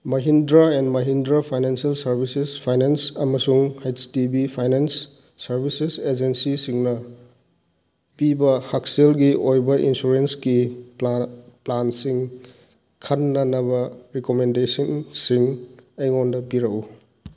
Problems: background sounds at intervals